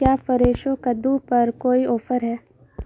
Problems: constant background noise